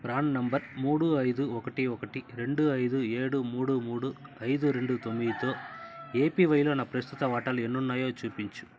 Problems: background sounds at intervals